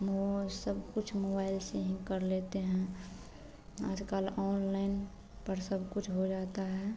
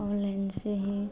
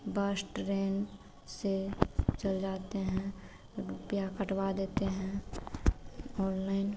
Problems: constant background noise